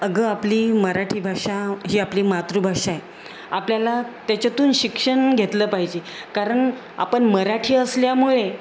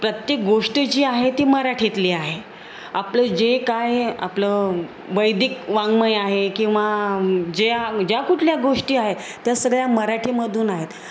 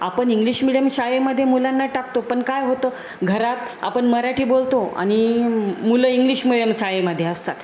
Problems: none marked